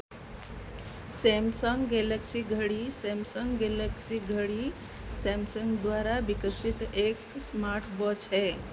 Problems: constant background noise